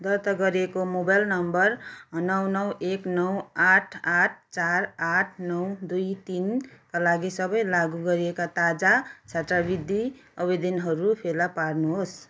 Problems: background sounds at intervals